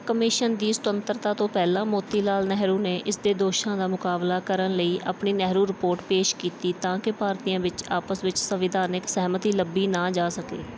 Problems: background sounds at intervals